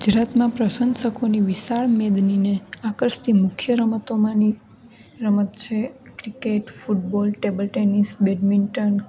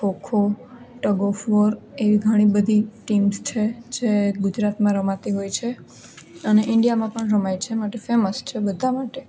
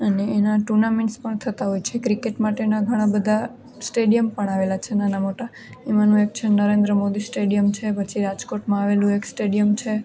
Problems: none marked